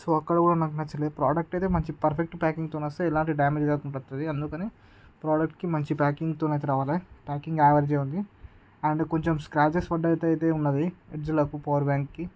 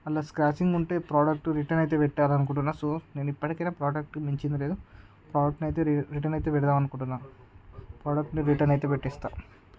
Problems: none marked